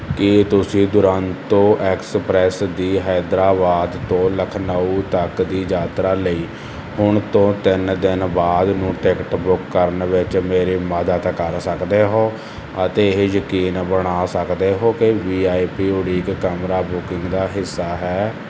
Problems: constant background noise